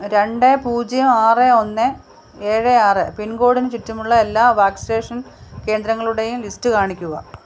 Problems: constant background noise